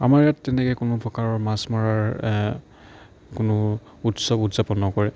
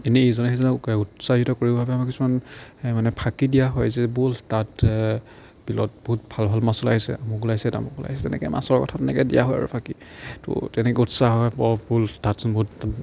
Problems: none marked